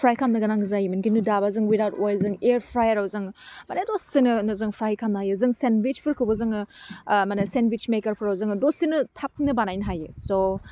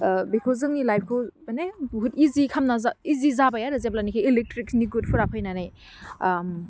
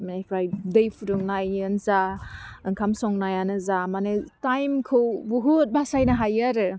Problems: none marked